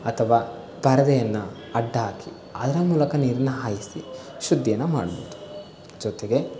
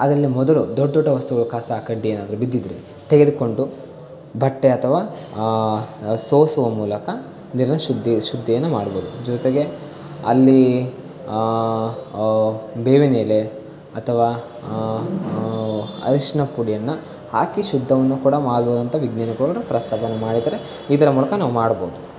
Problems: constant background noise